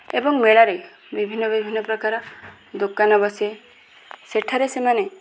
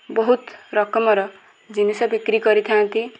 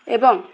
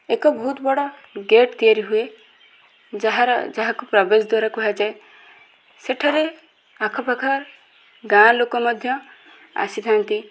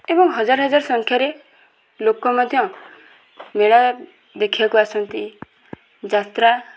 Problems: constant background noise, continuous background conversations